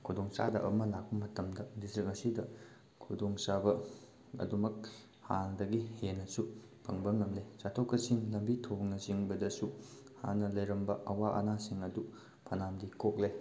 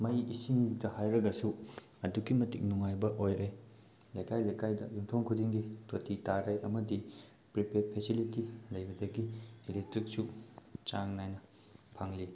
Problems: none marked